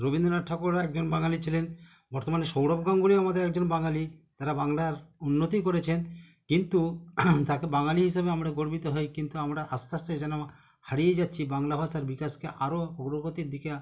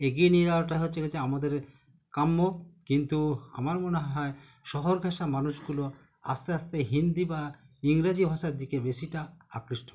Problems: continuous background conversations